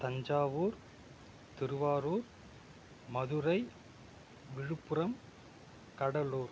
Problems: none marked